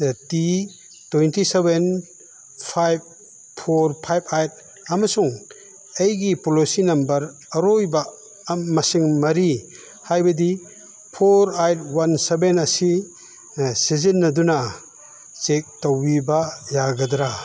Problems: background sounds at intervals